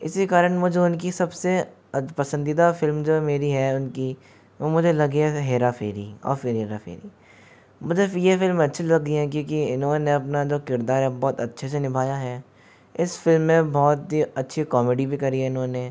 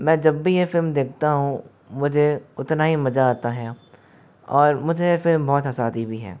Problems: background sounds at intervals